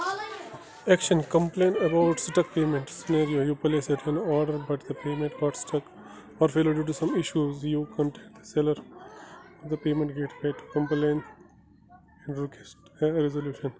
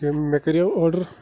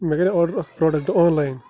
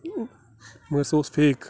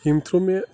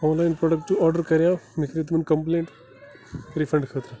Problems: constant background noise